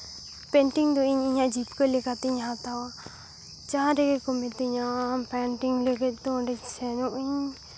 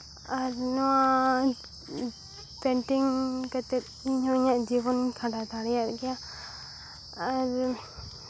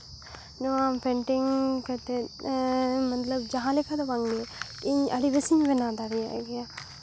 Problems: background sounds at intervals